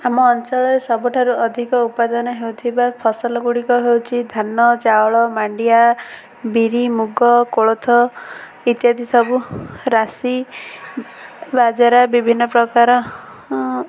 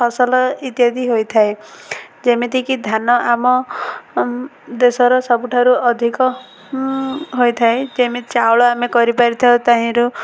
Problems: constant background noise